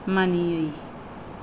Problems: low volume